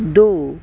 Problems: none marked